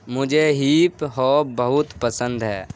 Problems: constant background noise